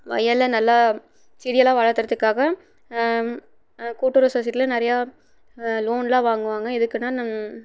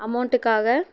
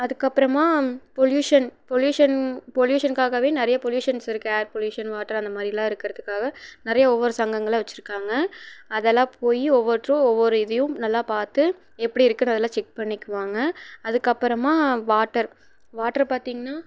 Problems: none marked